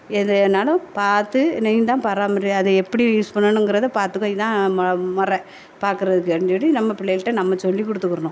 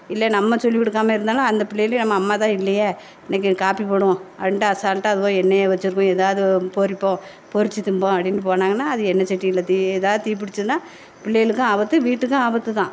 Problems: none marked